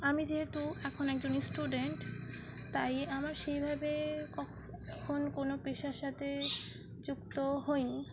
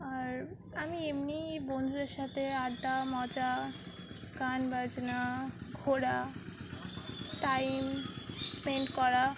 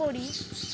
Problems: constant background noise, continuous background conversations